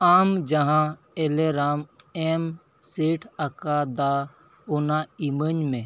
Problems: none marked